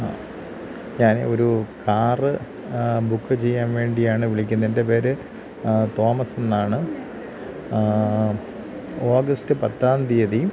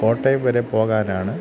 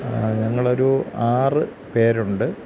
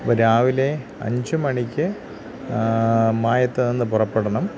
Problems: constant background noise